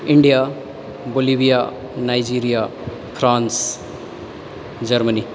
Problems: echo